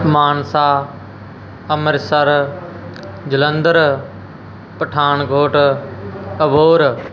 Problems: constant background noise